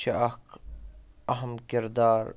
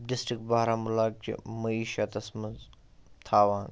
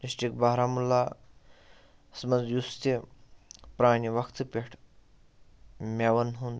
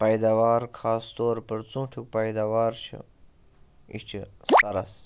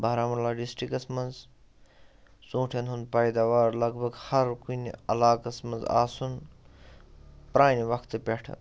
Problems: background sounds at intervals